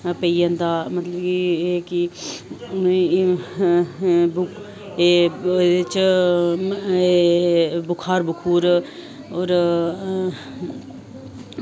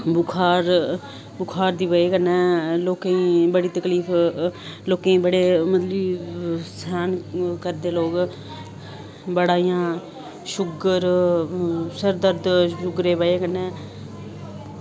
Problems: none marked